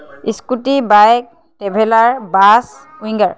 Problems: background sounds at intervals, background conversations at intervals